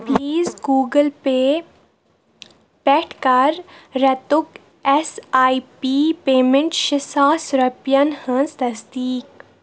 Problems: background sounds at intervals